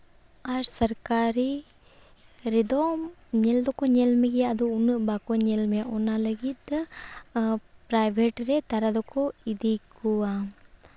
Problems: none marked